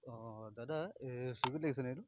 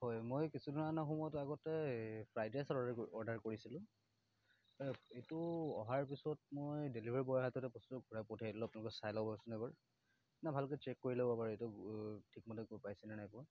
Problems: none marked